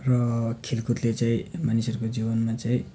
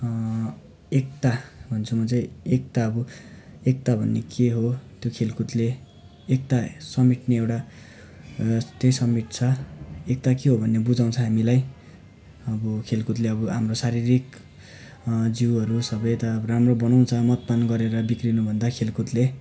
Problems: background sounds at intervals